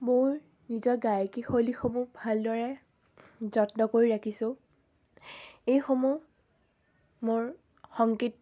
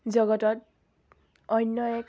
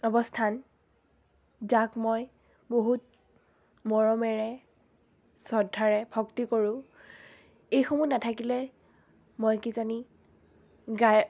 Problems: none marked